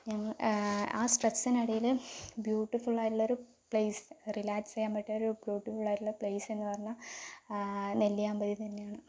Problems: low volume